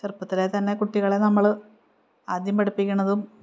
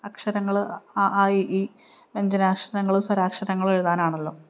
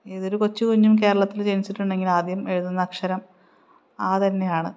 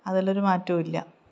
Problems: none marked